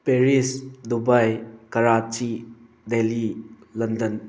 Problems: constant background noise